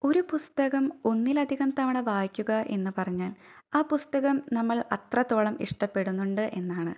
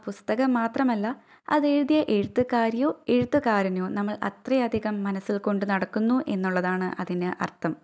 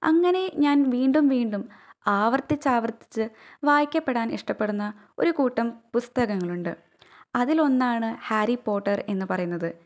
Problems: none marked